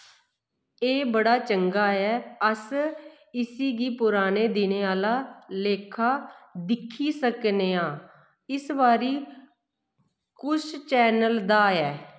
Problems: echo